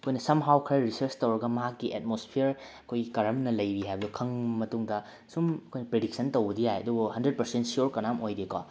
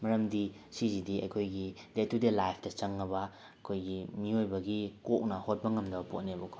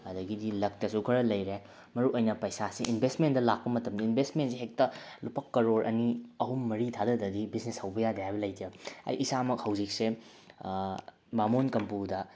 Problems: none marked